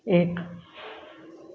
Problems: constant background noise